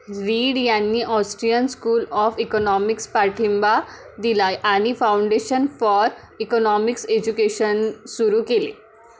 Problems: background sounds at intervals